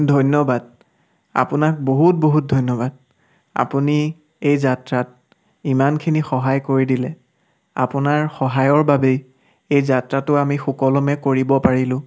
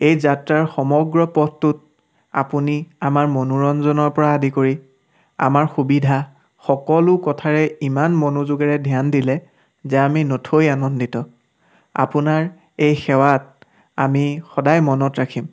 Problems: background sounds at intervals